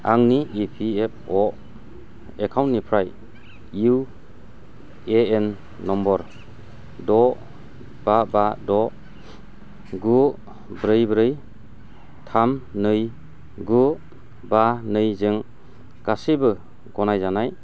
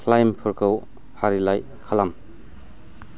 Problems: low volume